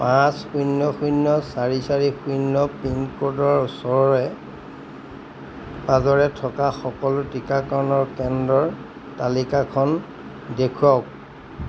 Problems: constant background noise